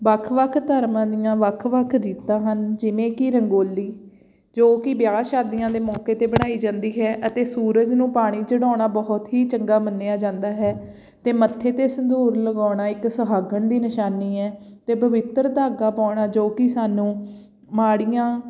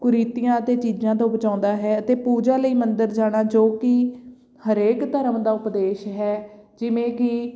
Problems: background sounds at intervals